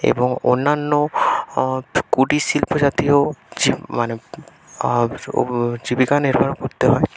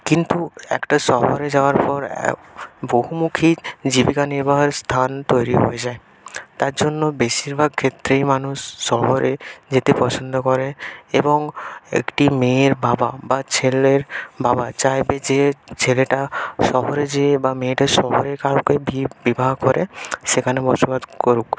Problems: constant background noise